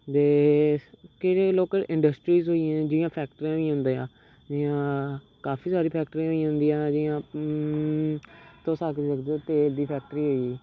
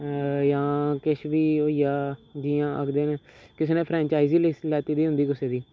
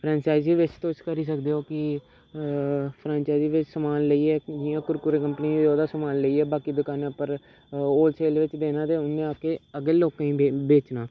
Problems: background sounds at intervals